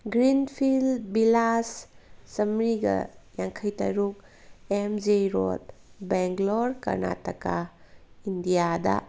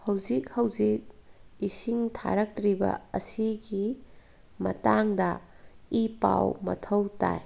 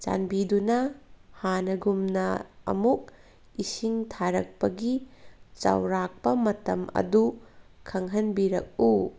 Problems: background sounds at intervals